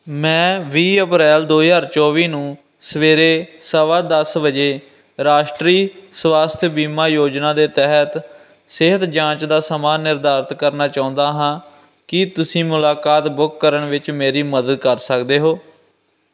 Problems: none marked